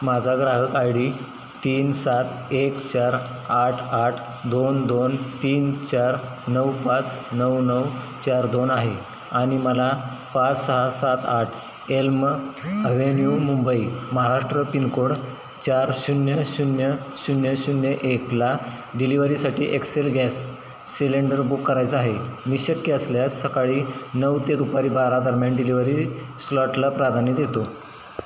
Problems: constant background noise